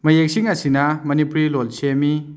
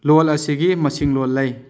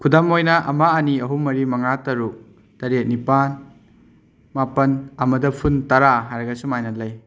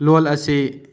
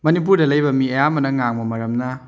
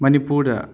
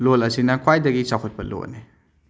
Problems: background sounds at intervals